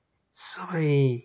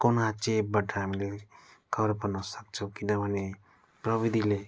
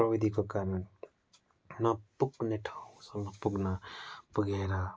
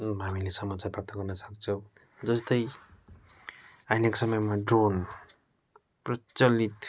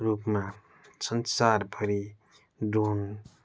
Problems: background sounds at intervals